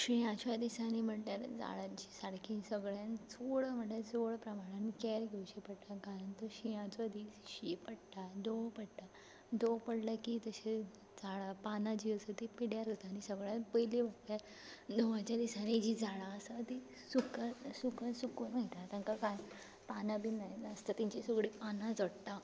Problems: background sounds at intervals